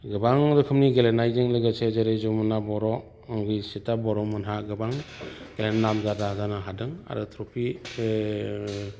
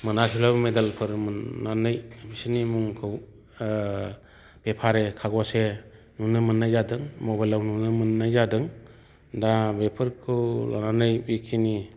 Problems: none marked